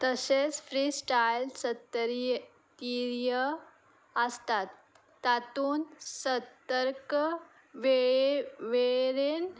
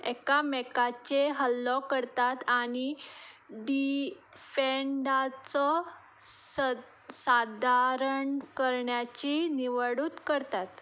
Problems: background sounds at intervals